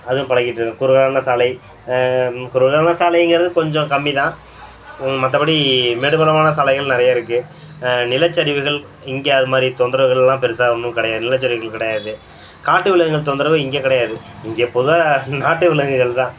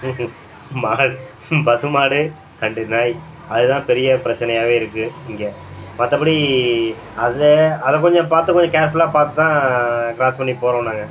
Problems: background sounds at intervals